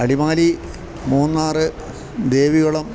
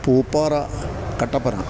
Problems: constant background noise